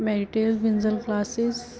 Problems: background sounds at intervals